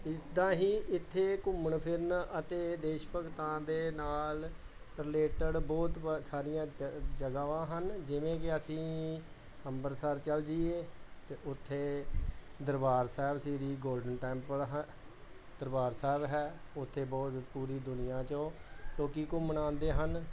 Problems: none marked